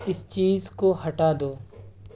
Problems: constant background noise, low volume